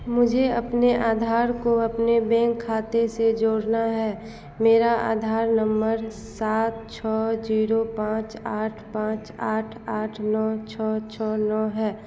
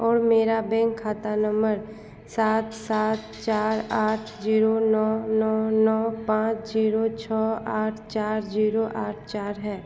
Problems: constant background noise